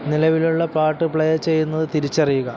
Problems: constant background noise